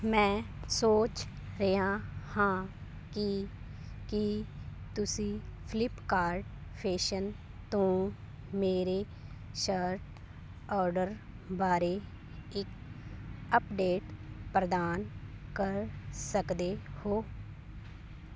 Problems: background sounds at intervals